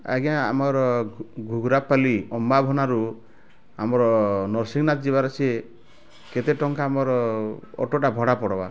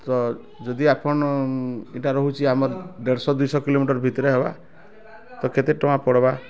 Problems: constant background noise, continuous background conversations